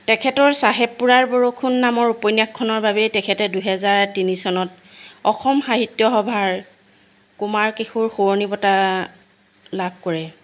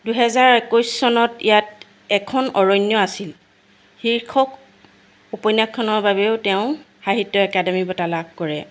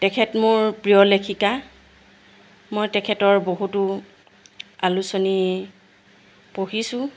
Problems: constant background noise